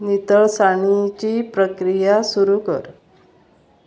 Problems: constant background noise